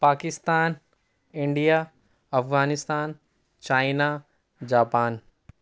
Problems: none marked